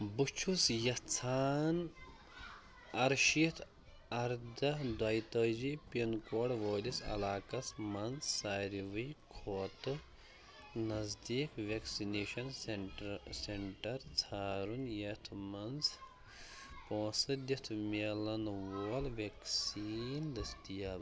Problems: constant background noise, continuous background conversations